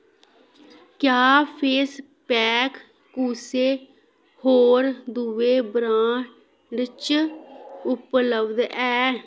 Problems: background sounds at intervals